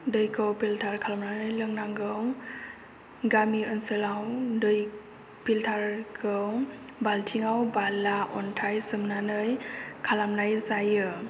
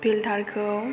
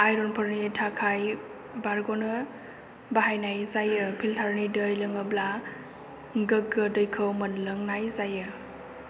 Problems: low volume